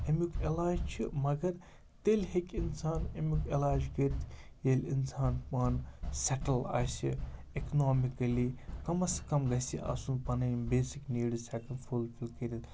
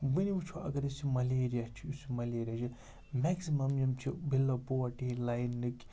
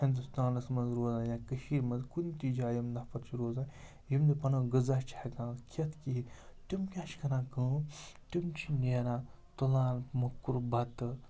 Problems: constant background noise